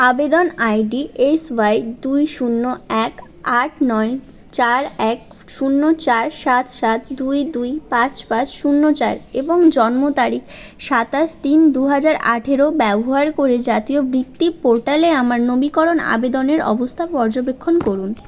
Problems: constant background noise